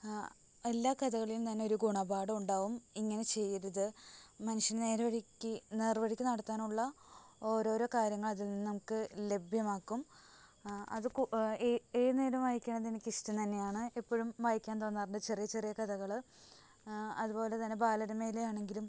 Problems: constant background noise, low volume